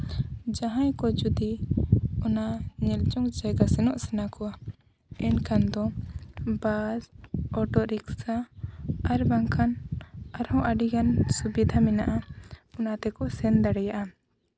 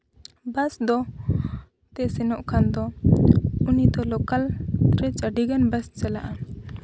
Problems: none marked